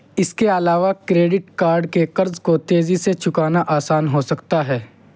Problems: constant background noise